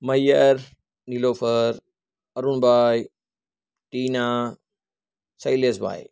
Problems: none marked